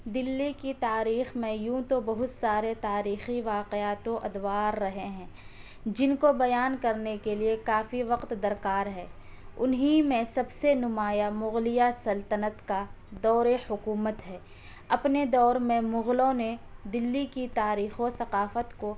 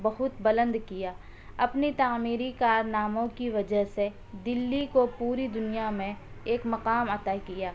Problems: none marked